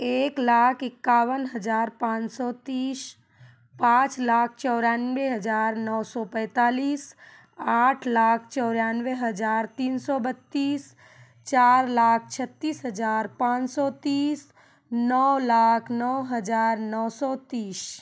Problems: background conversations at intervals